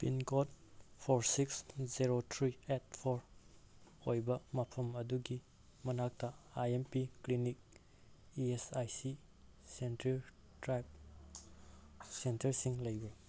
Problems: none marked